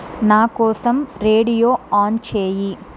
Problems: constant background noise